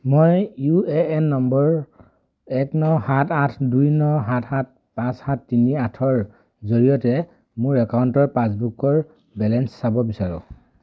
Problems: none marked